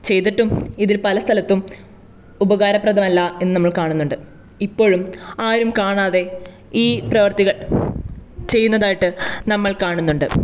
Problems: none marked